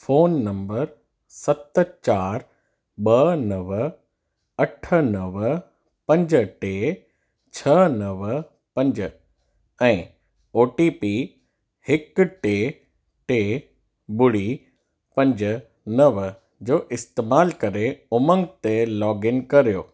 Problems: none marked